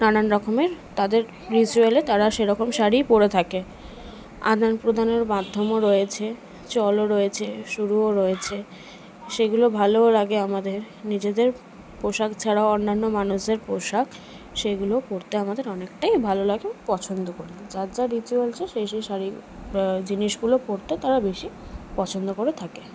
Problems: constant background noise, background conversations at intervals